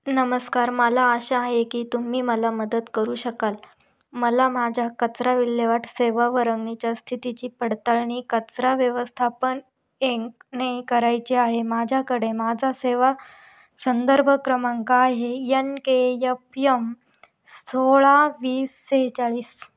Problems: none marked